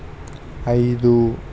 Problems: constant background noise